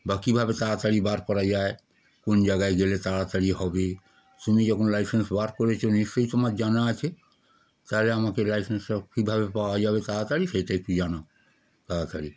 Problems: background sounds at intervals